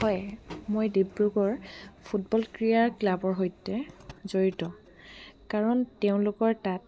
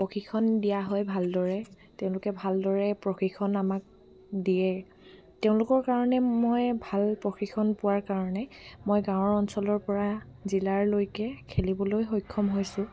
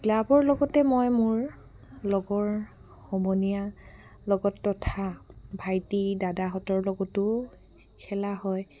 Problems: background sounds at intervals